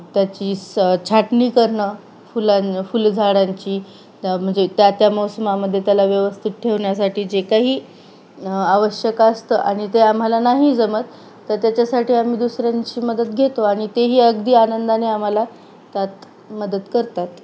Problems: none marked